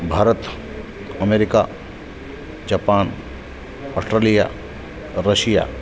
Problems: constant background noise, background conversations at intervals